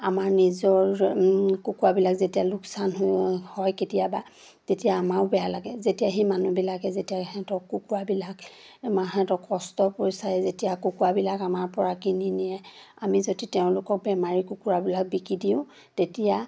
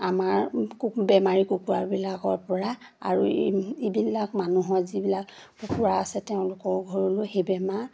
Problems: none marked